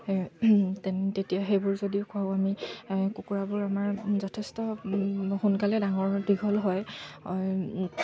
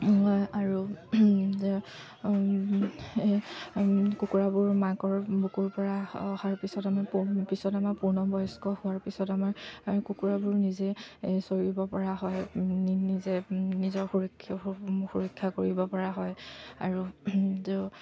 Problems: none marked